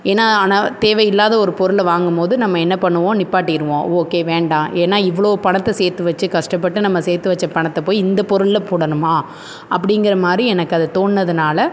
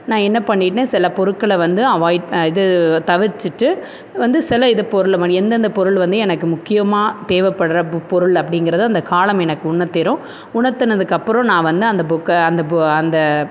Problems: constant background noise